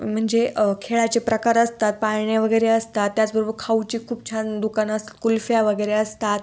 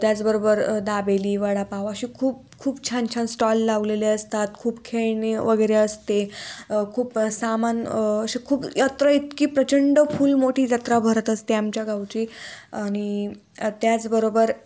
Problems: constant background noise